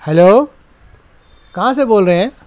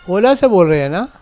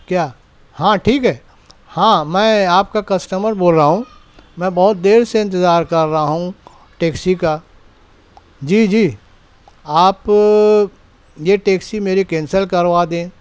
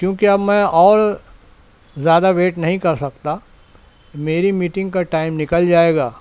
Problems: none marked